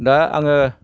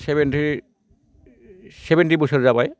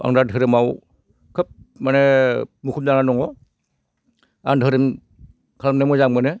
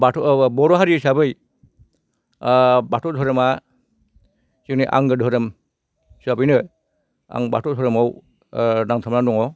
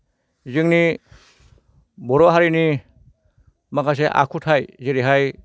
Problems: none marked